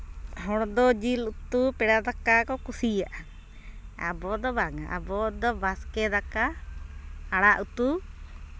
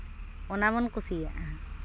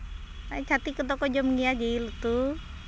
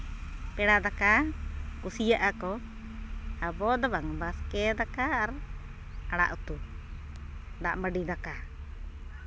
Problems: constant background noise